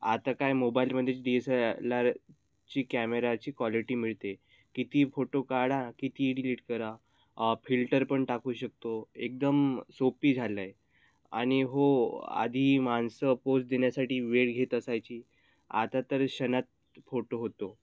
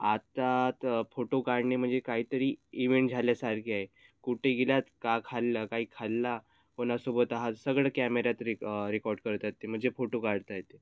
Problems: none marked